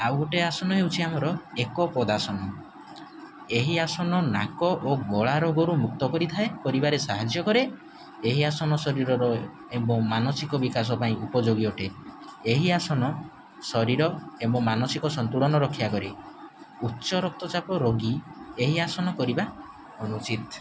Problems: none marked